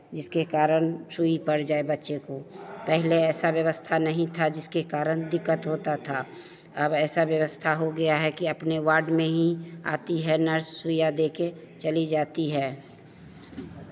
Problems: constant background noise, continuous background conversations